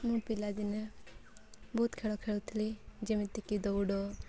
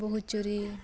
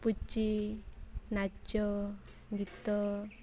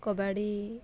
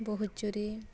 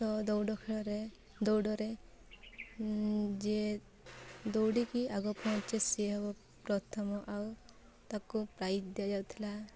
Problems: none marked